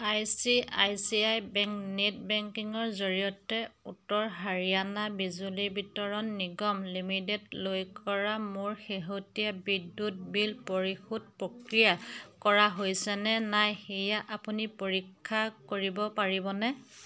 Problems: constant background noise, background conversations at intervals